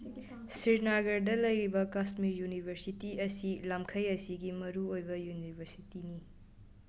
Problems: background conversations at intervals